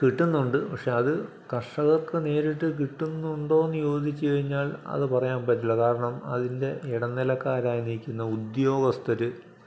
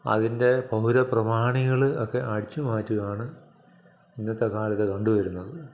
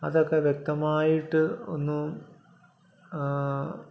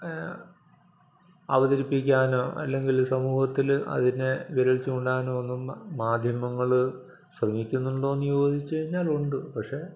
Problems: none marked